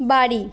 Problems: constant background noise